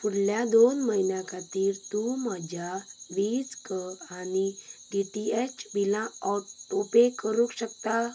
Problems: background sounds at intervals, background conversations at intervals